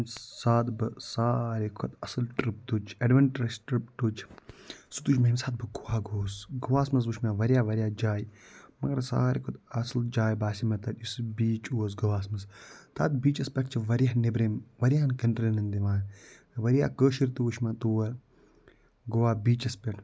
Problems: low volume